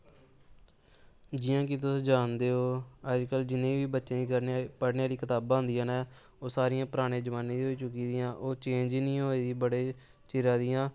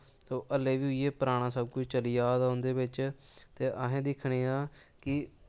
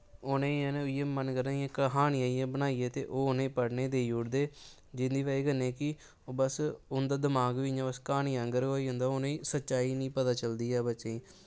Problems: constant background noise